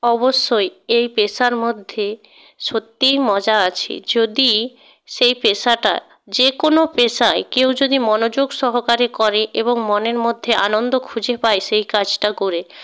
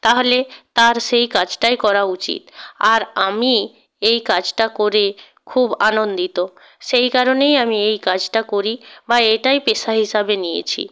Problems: background sounds at intervals